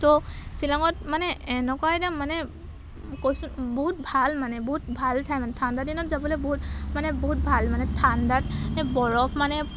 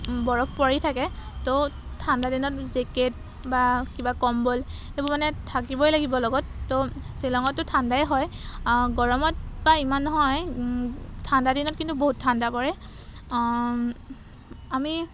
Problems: background sounds at intervals